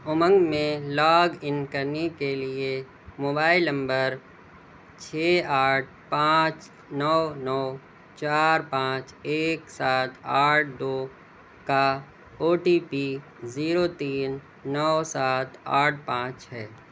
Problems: none marked